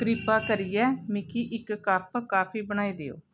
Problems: background sounds at intervals